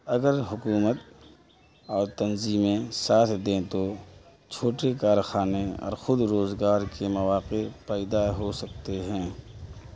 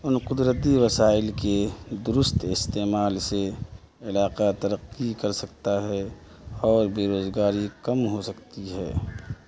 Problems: constant background noise, background conversations at intervals, low volume